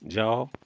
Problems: none marked